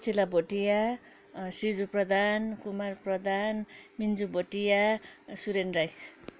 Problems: background sounds at intervals, background conversations at intervals